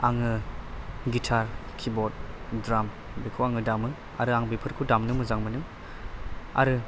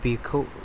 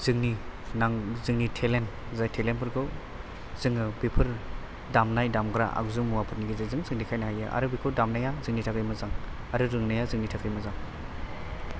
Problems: constant background noise